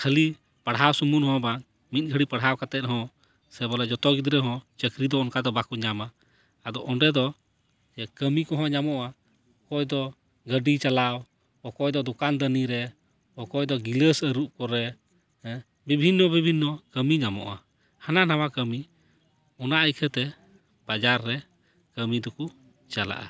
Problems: none marked